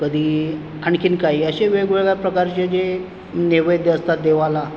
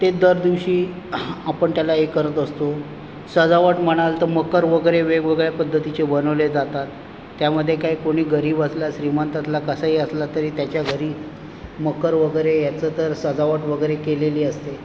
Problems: constant background noise